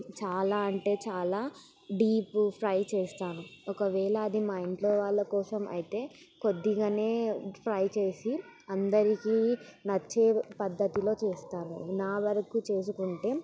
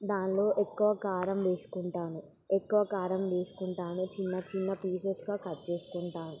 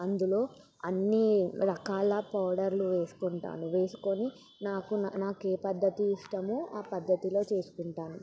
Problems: background sounds at intervals